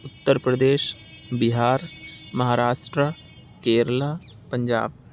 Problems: none marked